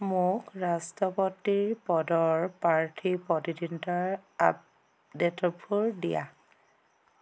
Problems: constant background noise